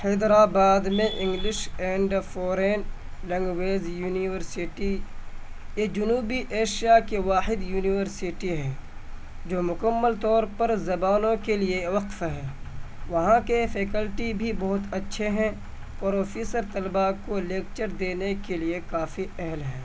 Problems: constant background noise